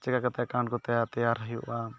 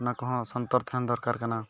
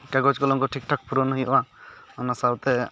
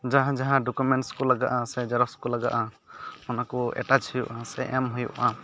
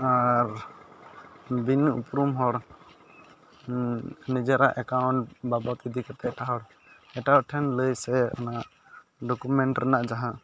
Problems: background sounds at intervals